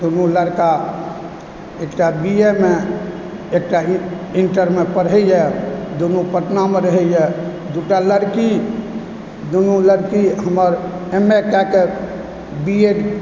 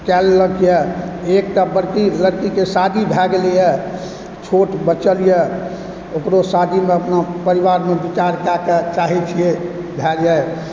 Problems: background sounds at intervals